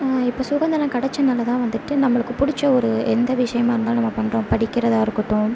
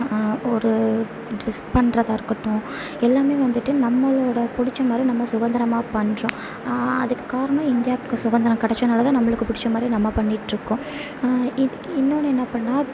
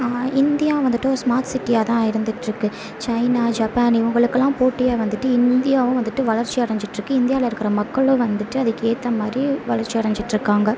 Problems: none marked